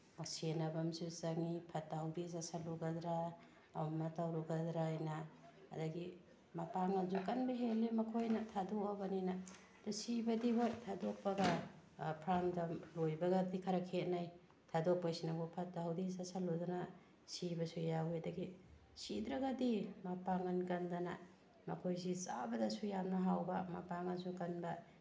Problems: background sounds at intervals